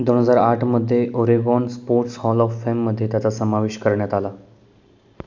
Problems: none marked